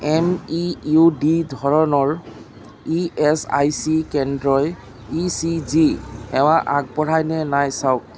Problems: constant background noise